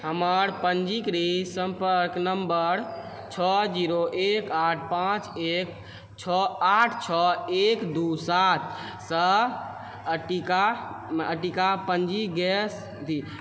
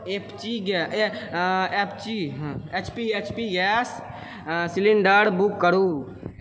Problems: constant background noise